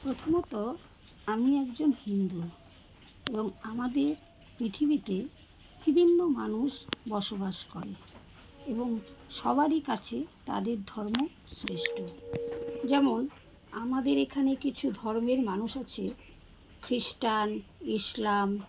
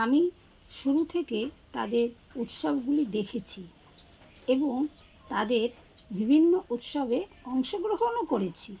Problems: background sounds at intervals